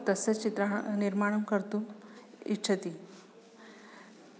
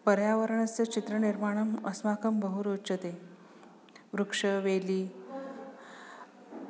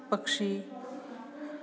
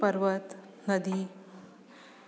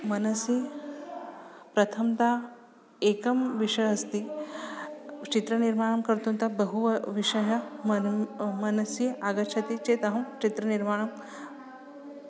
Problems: background sounds at intervals, background conversations at intervals